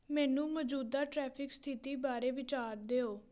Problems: background conversations at intervals